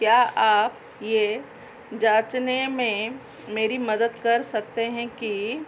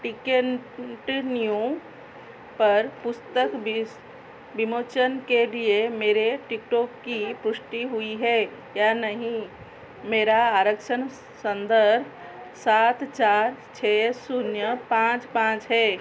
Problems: constant background noise